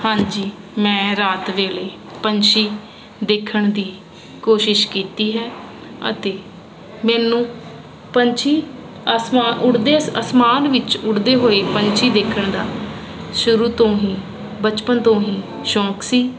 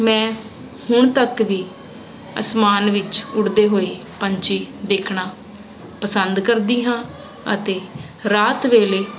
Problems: constant background noise